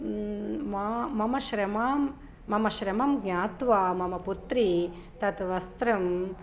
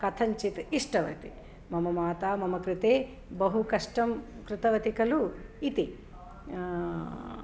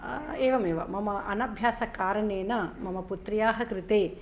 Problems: none marked